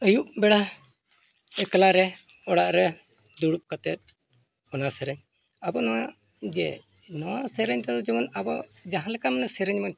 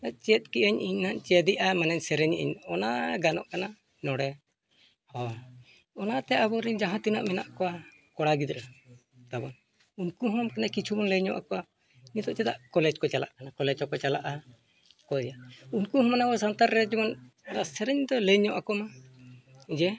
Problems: none marked